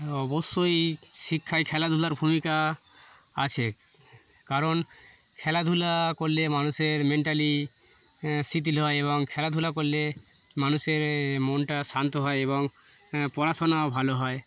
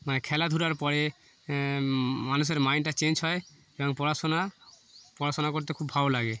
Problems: none marked